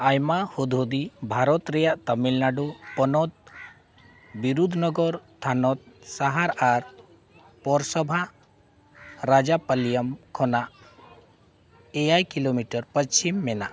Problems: background sounds at intervals